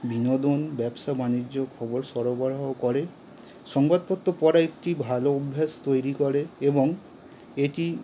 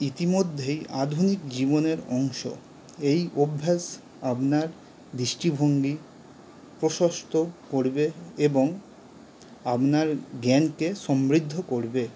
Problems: none marked